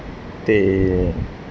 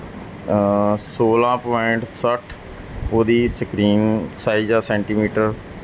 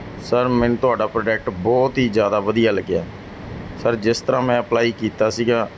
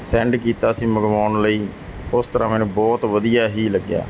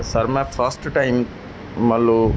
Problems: background sounds at intervals